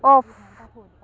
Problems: continuous background conversations